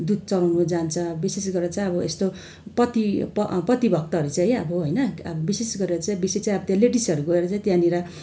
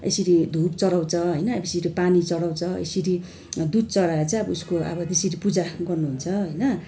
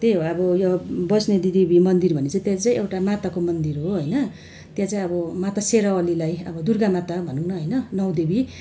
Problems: none marked